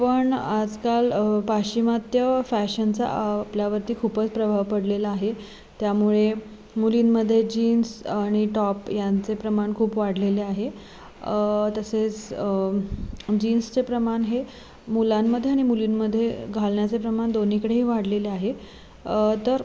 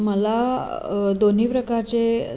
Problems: constant background noise, background conversations at intervals